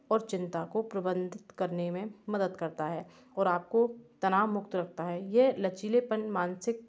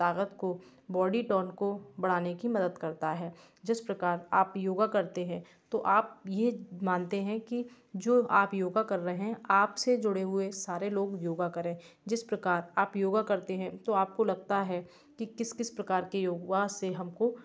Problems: background sounds at intervals